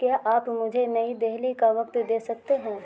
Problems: constant background noise